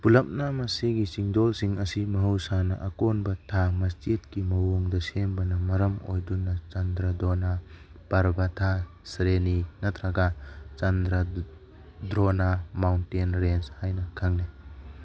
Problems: background sounds at intervals